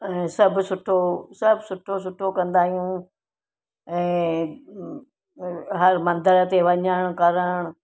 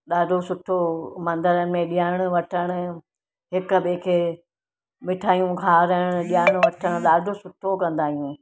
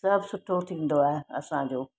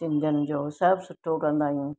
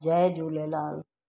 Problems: background sounds at intervals